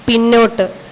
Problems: constant background noise